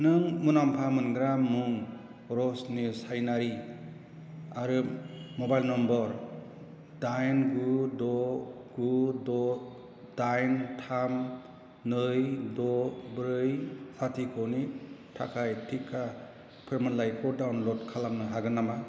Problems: constant background noise